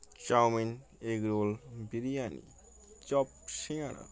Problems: constant background noise